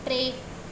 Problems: constant background noise, echo